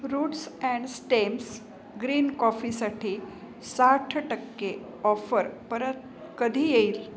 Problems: none marked